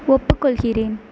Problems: none marked